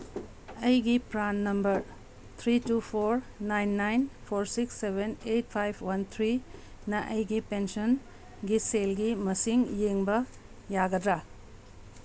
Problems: none marked